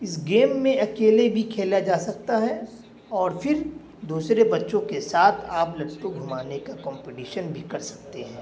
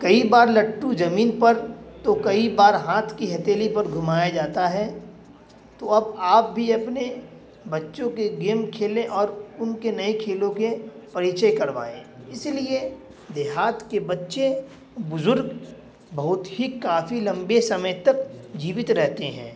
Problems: constant background noise